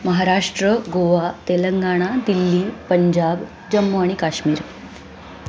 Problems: none marked